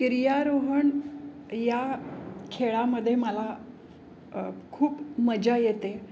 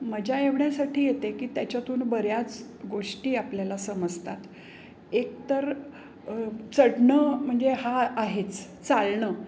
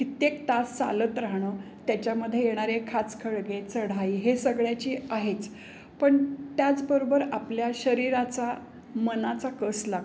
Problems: constant background noise, background conversations at intervals